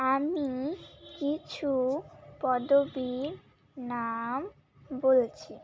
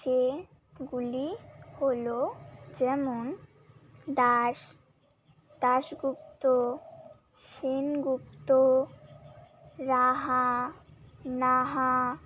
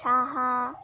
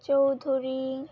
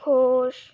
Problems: constant background noise